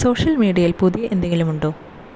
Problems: constant background noise